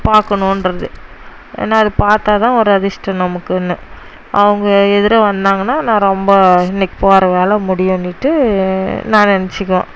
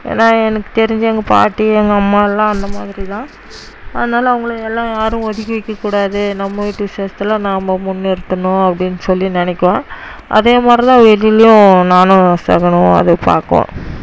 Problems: constant background noise